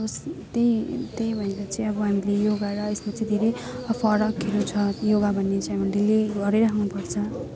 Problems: constant background noise, continuous background conversations